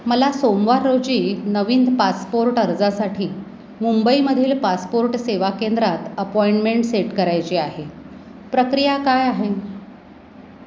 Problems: constant background noise